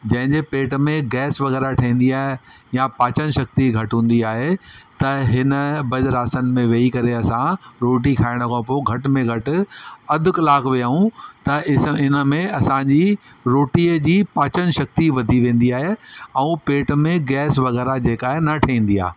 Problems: constant background noise, echo